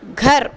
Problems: constant background noise